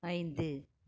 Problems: none marked